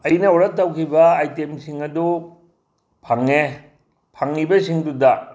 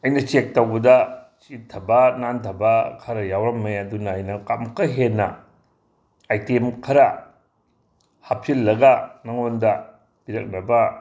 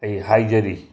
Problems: background sounds at intervals